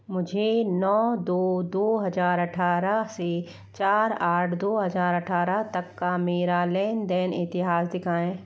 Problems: none marked